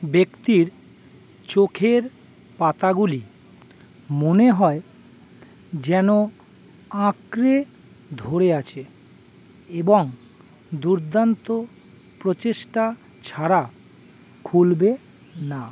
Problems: constant background noise